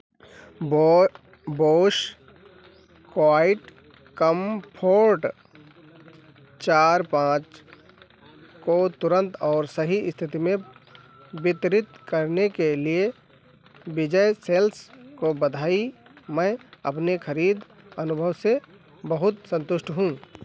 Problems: constant background noise